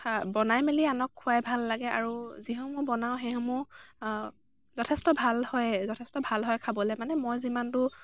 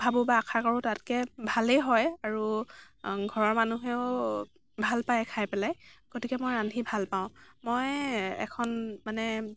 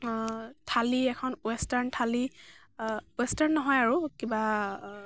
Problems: none marked